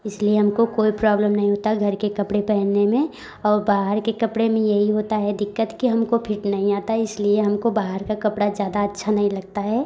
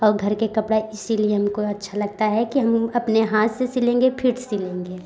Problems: background conversations at intervals